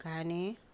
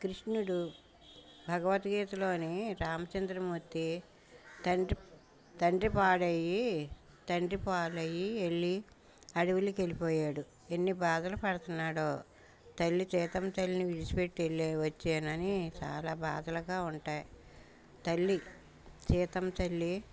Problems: background sounds at intervals